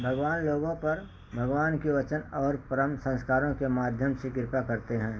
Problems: constant background noise